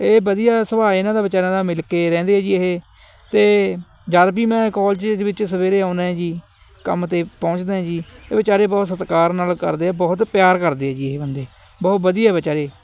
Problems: constant background noise